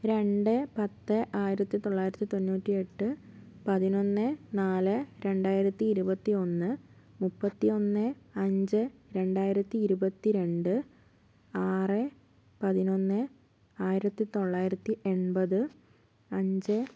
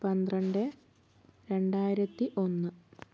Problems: low volume